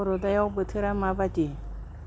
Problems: none marked